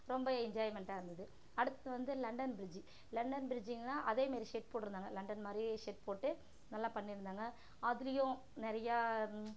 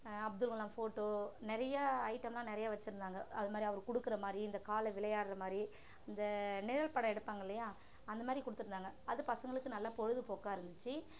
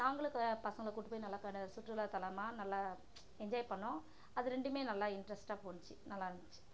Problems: constant background noise, low volume